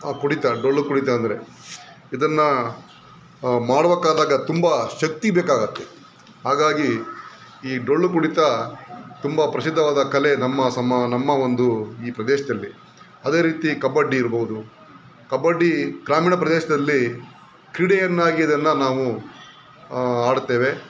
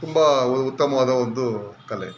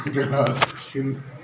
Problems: background sounds at intervals